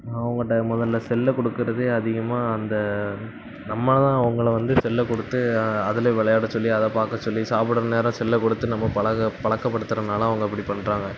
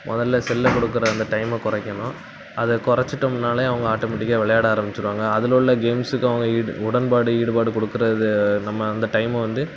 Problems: none marked